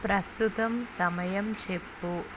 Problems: none marked